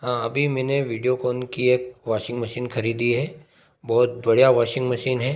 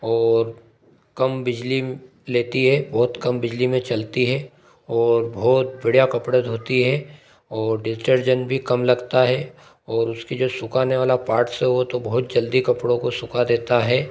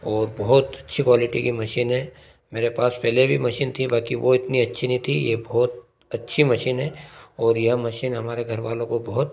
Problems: none marked